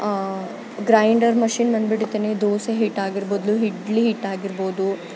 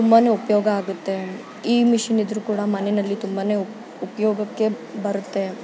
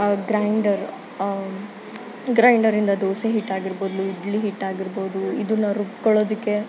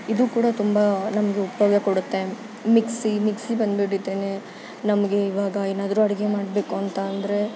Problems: constant background noise